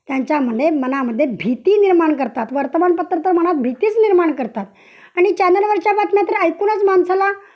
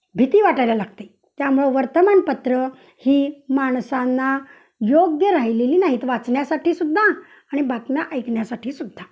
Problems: constant background noise